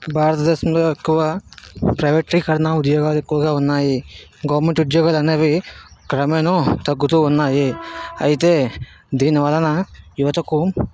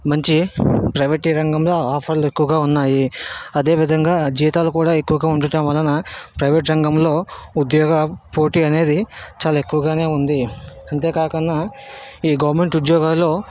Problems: background sounds at intervals